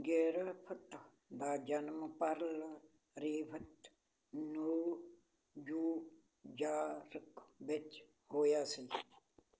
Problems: constant background noise